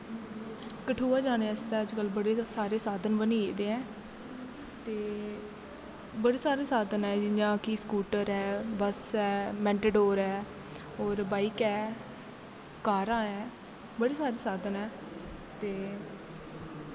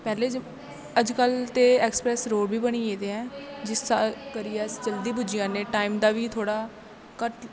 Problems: none marked